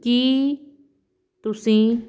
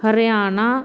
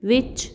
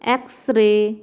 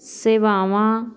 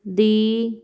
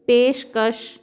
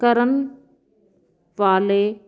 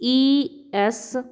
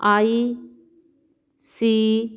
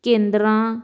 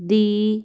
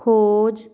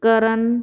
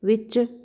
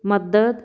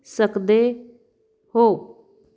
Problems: background sounds at intervals